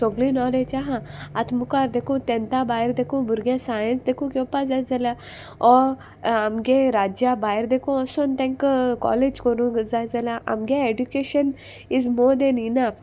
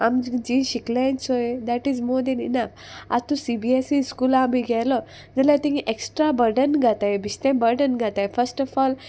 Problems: constant background noise